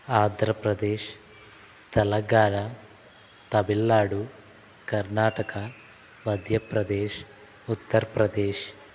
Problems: none marked